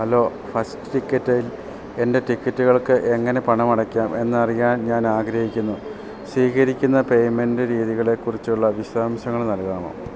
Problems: none marked